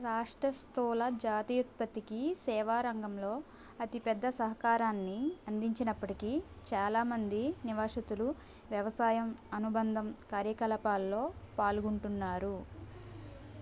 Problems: constant background noise